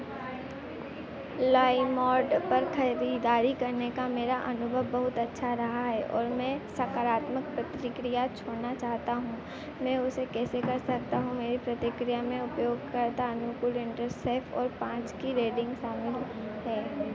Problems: constant background noise